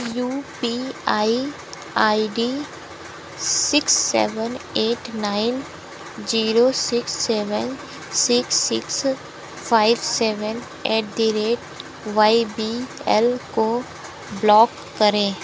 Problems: constant background noise